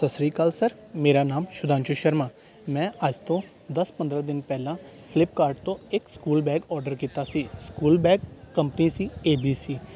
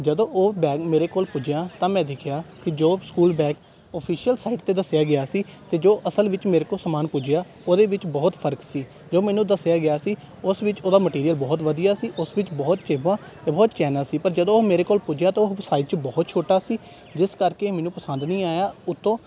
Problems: background sounds at intervals